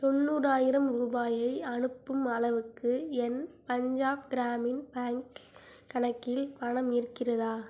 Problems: low volume